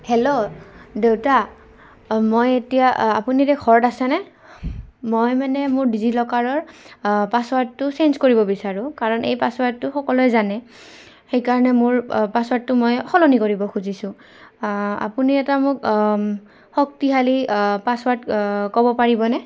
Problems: constant background noise